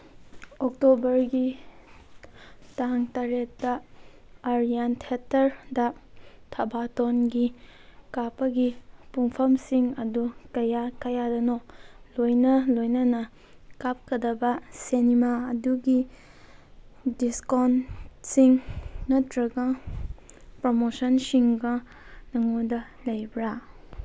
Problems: background sounds at intervals